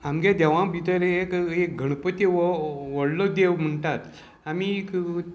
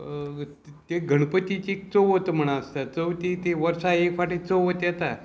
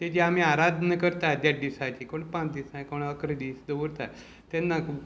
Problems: constant background noise